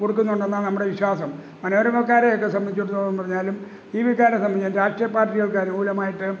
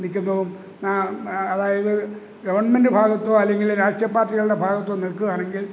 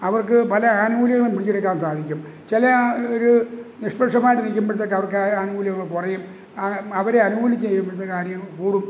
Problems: background sounds at intervals